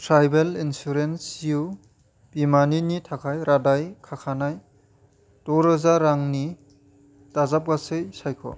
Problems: none marked